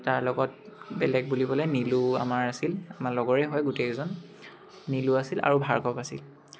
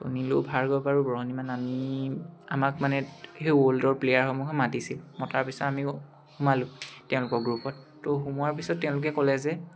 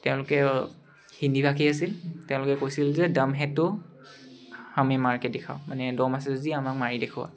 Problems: none marked